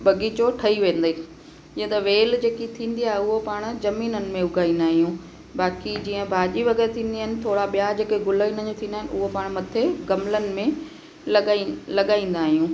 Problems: constant background noise, echo